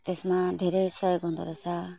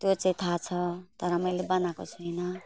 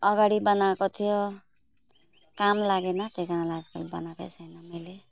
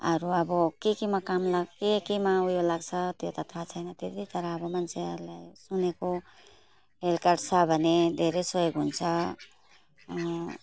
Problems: background sounds at intervals